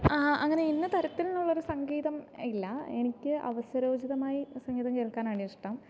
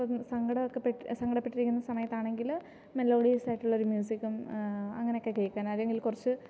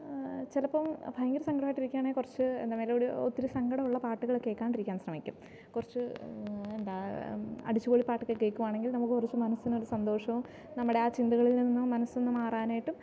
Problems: none marked